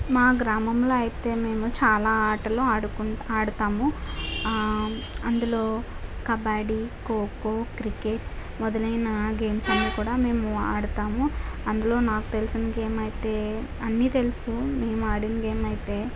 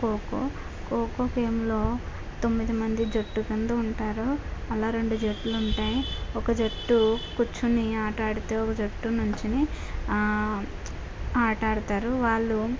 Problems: constant background noise